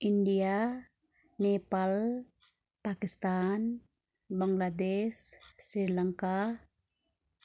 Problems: none marked